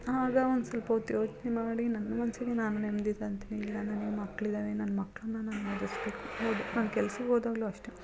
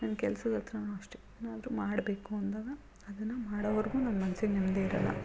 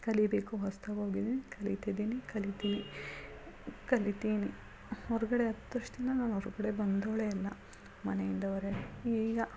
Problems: background sounds at intervals, background conversations at intervals